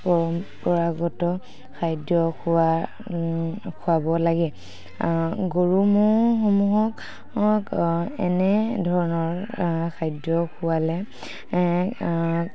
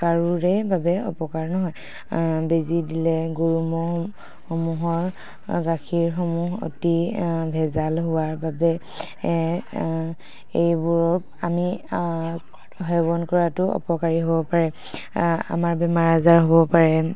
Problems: background sounds at intervals